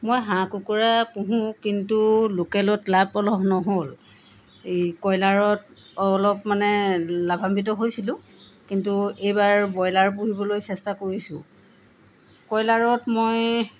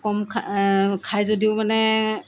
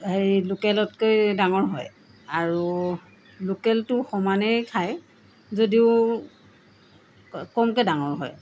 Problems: none marked